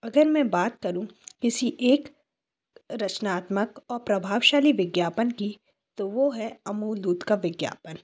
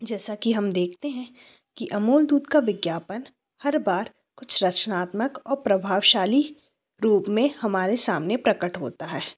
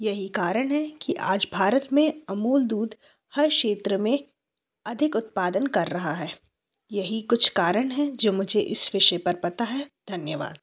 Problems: background sounds at intervals